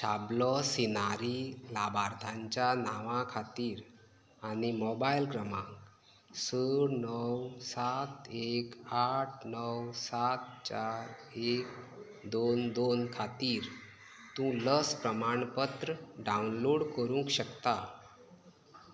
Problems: none marked